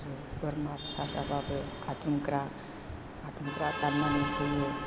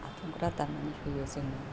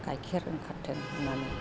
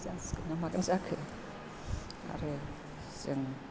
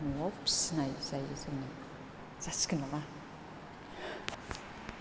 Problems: constant background noise